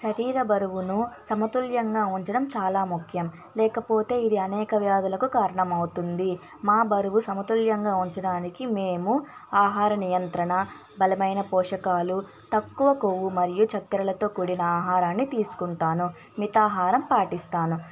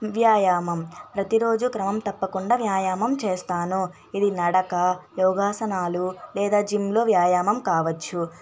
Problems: constant background noise, background conversations at intervals